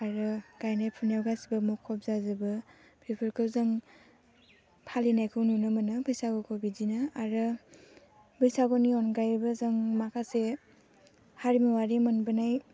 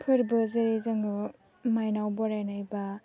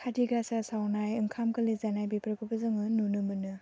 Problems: none marked